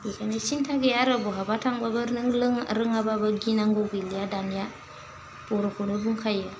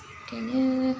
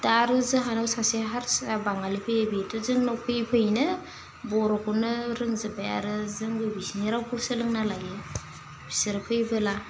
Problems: constant background noise